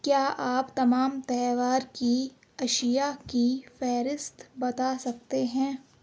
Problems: none marked